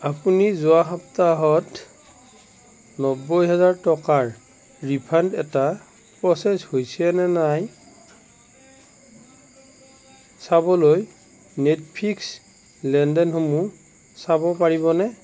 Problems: none marked